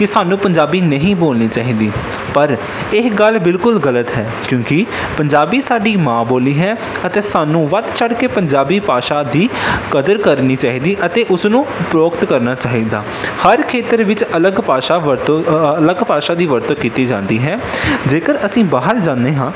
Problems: constant background noise